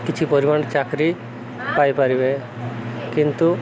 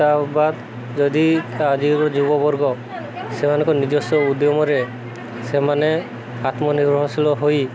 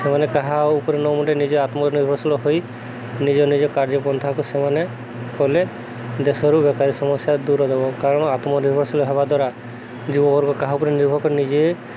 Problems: constant background noise, background conversations at intervals